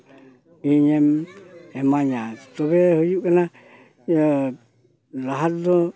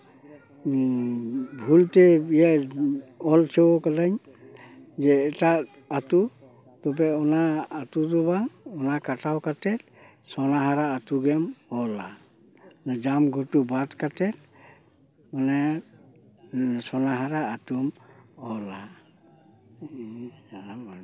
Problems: background sounds at intervals